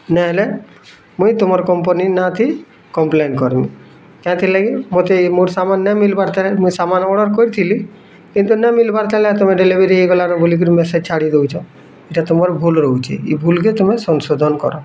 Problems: constant background noise, continuous background conversations